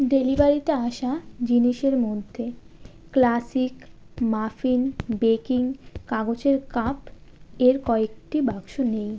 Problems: constant background noise